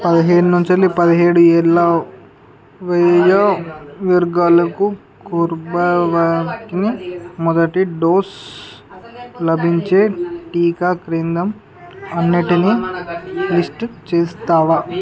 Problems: continuous background conversations